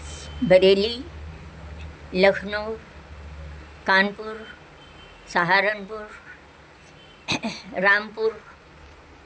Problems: constant background noise